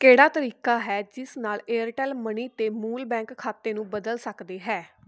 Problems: constant background noise